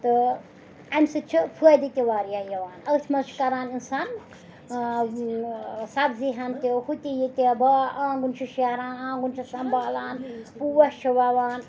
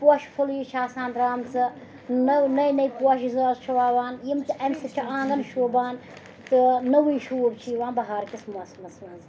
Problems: constant background noise, background conversations at intervals